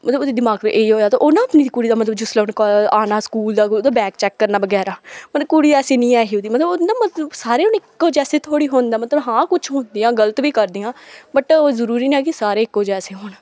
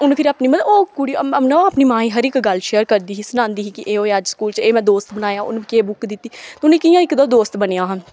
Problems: none marked